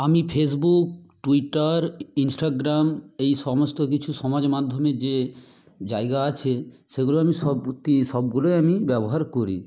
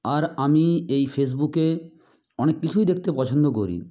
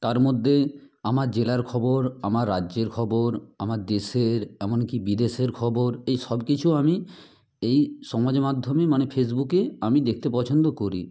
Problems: constant background noise